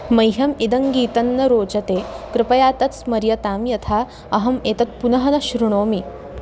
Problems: constant background noise